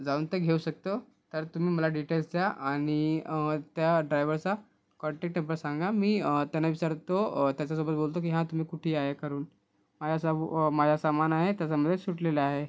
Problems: constant background noise